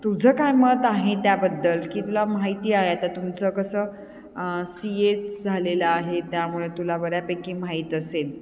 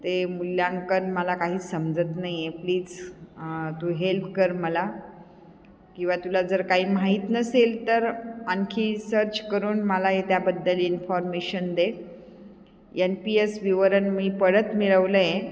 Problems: constant background noise, echo